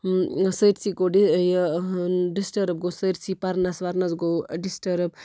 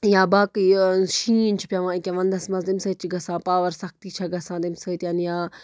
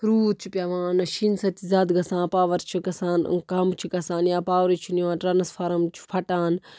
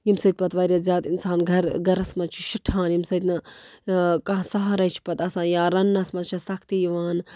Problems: none marked